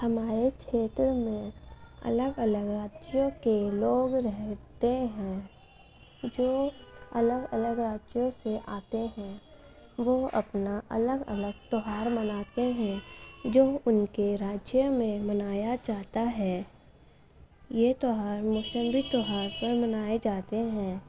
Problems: constant background noise, background conversations at intervals, low volume